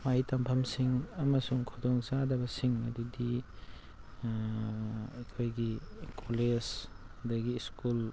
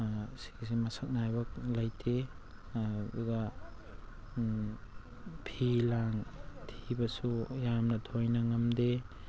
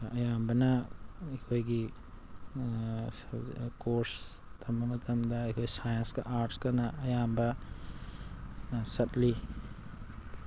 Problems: constant background noise